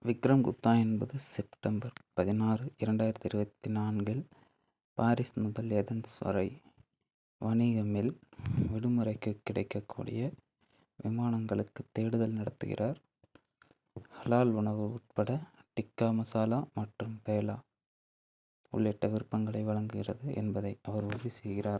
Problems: none marked